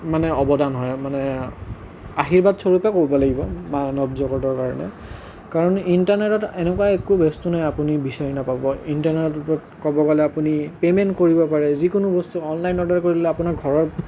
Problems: none marked